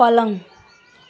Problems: background sounds at intervals